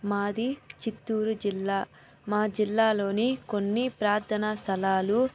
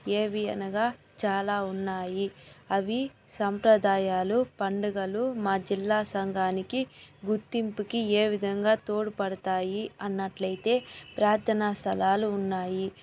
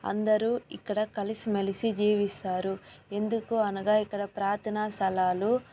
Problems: background sounds at intervals, background conversations at intervals